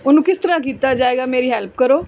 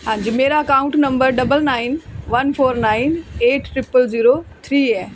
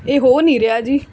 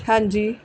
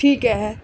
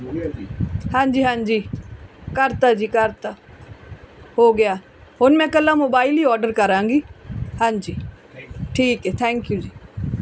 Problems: background conversations at intervals